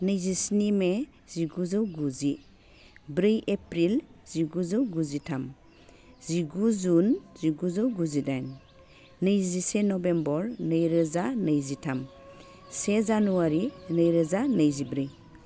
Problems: low volume